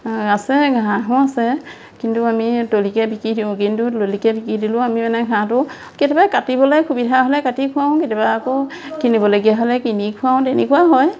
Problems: constant background noise, background conversations at intervals